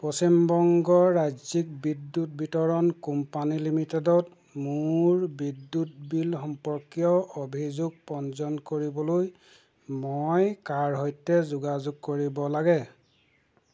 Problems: constant background noise